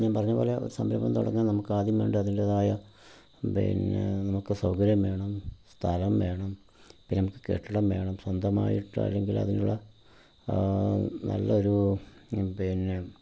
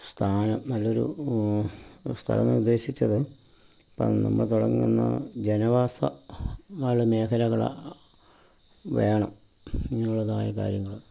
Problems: low volume